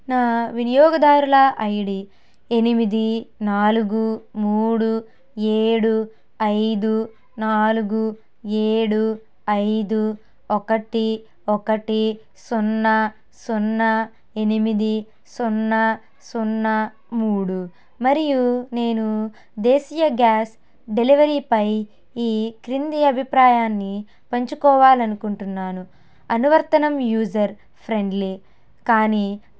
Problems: none marked